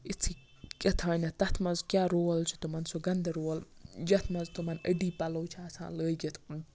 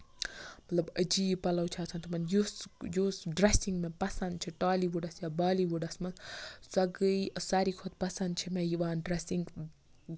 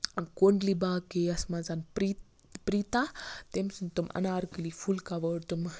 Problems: constant background noise